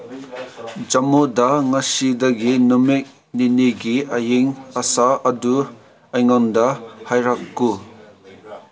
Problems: constant background noise